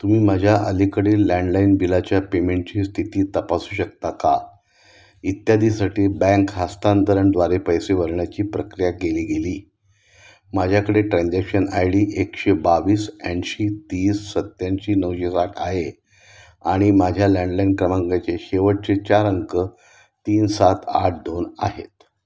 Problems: constant background noise